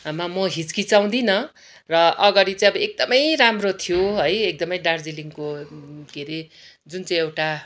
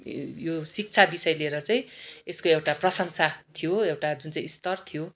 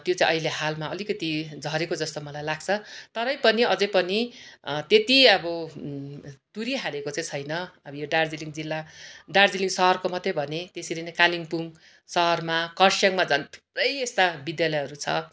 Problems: none marked